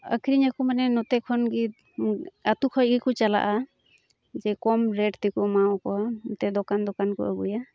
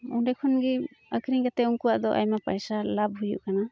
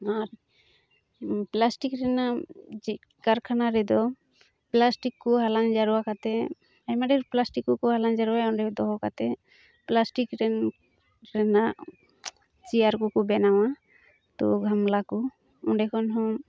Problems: none marked